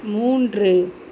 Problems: constant background noise